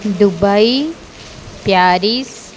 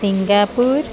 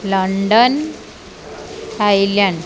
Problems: constant background noise, continuous background conversations